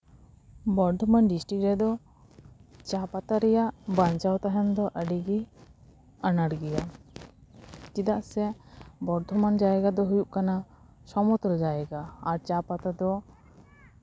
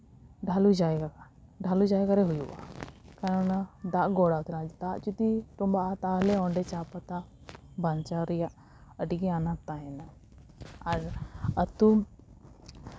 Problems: background sounds at intervals